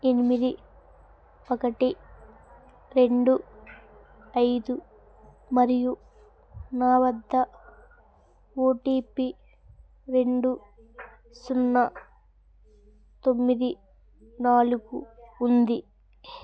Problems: none marked